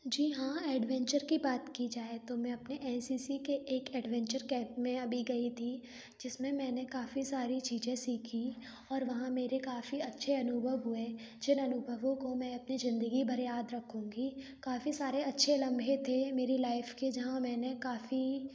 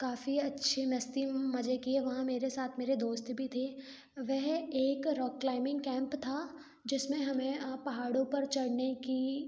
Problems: none marked